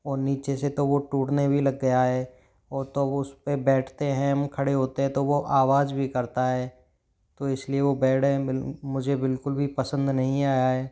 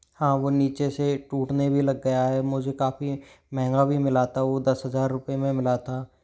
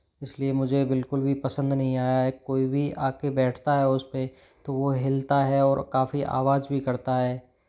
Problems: none marked